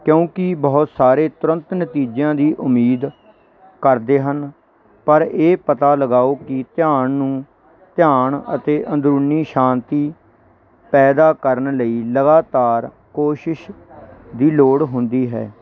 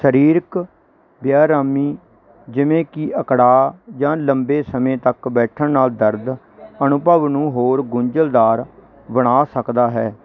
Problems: none marked